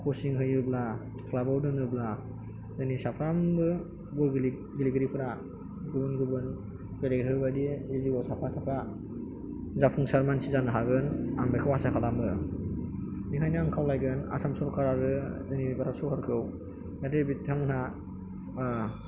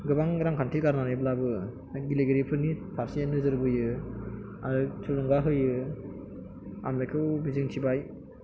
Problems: background sounds at intervals